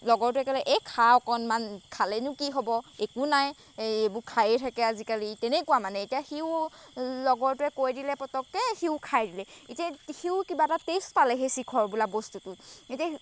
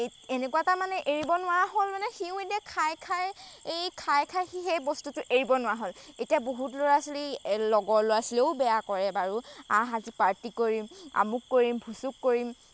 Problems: background sounds at intervals